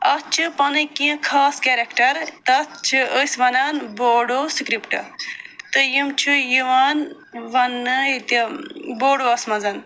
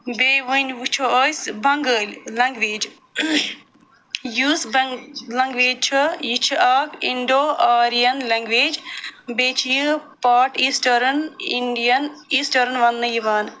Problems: none marked